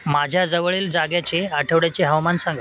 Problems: constant background noise